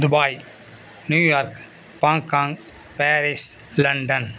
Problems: constant background noise